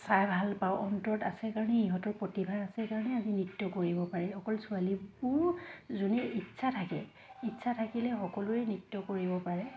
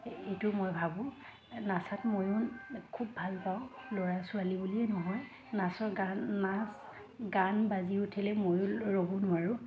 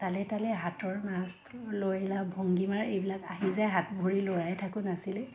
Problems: constant background noise, background conversations at intervals